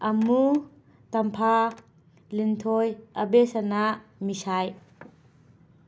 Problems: constant background noise